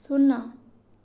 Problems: low volume